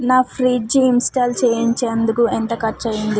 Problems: constant background noise